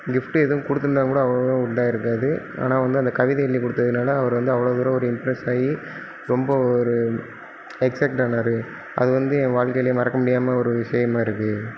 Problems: background sounds at intervals